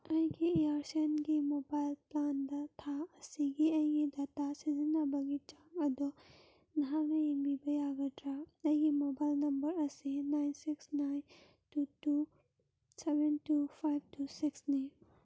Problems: background sounds at intervals